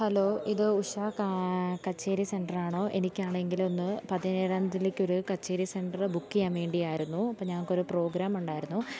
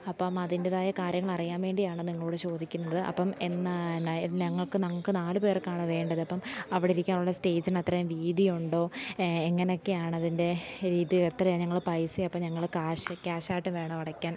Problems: low volume